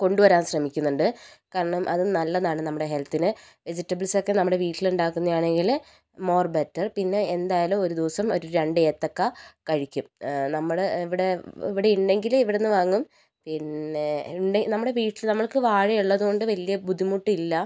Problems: low volume